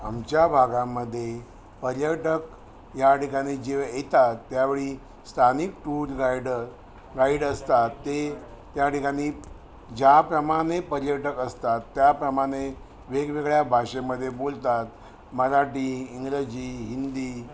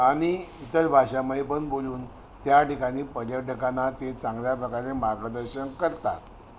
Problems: none marked